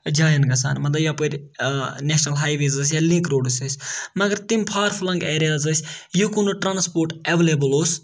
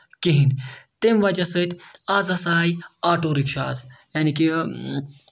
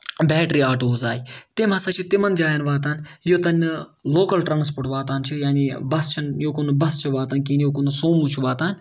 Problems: none marked